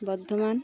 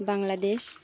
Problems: constant background noise, continuous background conversations